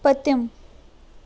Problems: constant background noise